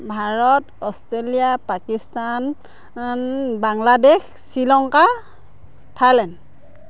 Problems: background sounds at intervals